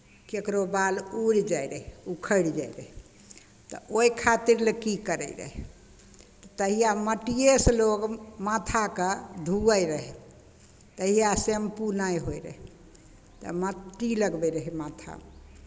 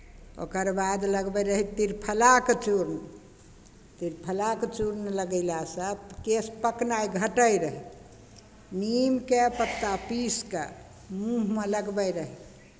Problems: none marked